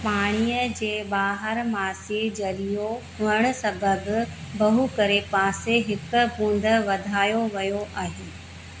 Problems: constant background noise, echo